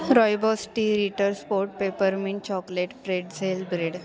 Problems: none marked